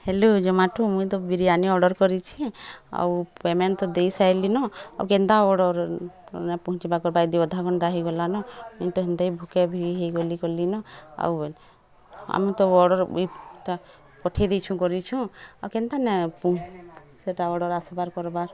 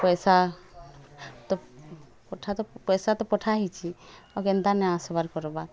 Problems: constant background noise, continuous background conversations